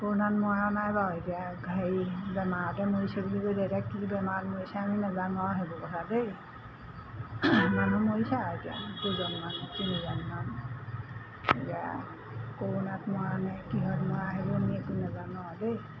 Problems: constant background noise